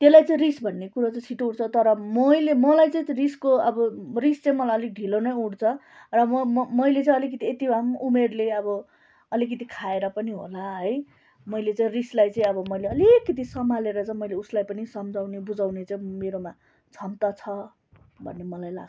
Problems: none marked